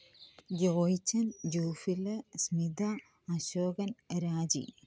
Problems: low volume